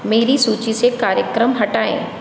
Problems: none marked